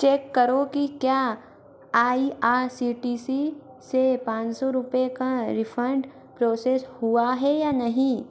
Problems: constant background noise